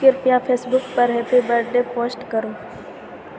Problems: none marked